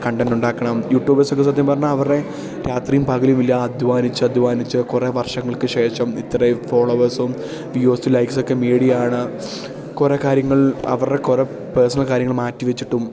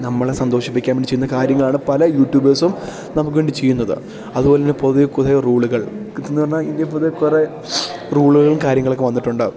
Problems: none marked